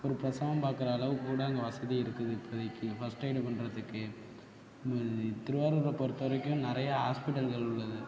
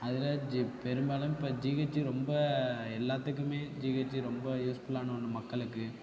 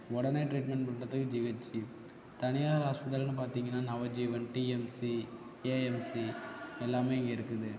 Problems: constant background noise, continuous background conversations, low volume